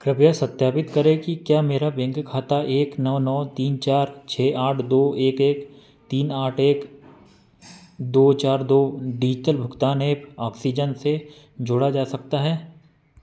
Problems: none marked